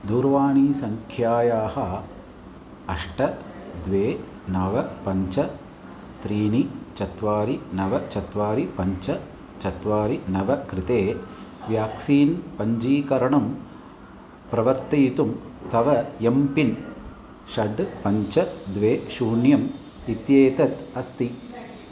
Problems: continuous background conversations